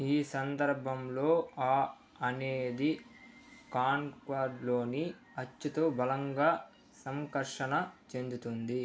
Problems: low volume